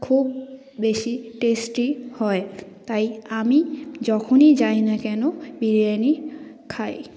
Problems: background sounds at intervals